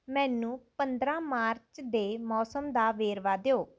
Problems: background sounds at intervals